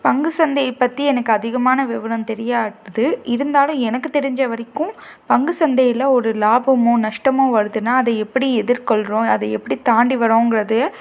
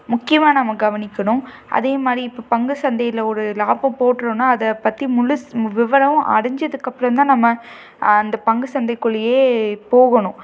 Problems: none marked